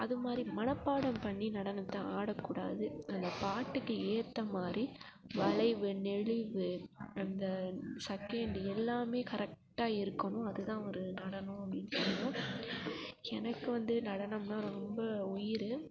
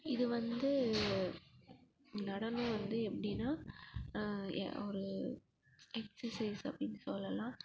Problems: background sounds at intervals, low volume